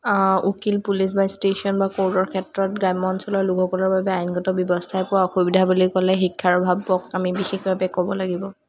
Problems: background sounds at intervals, background conversations at intervals